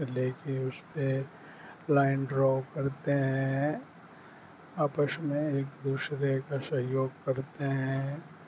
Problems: constant background noise